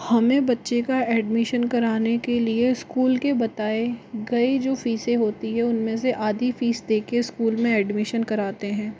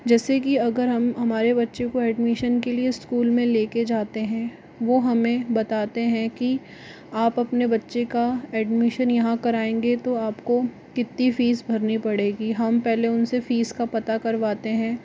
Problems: constant background noise